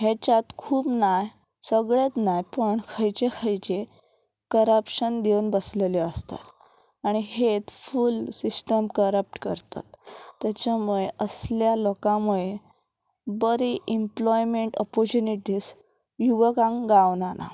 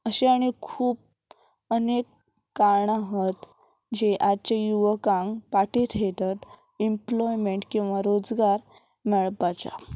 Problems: none marked